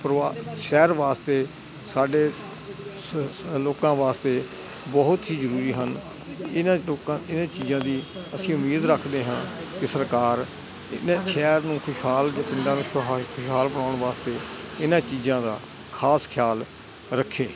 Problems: none marked